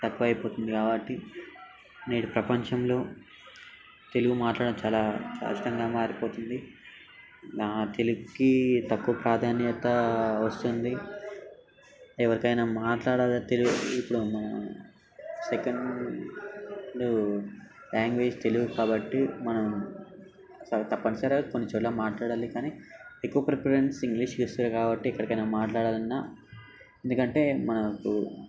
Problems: constant background noise, background conversations at intervals